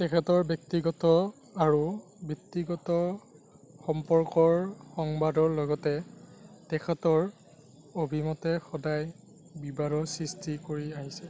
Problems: none marked